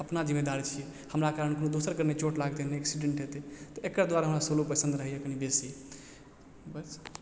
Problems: background sounds at intervals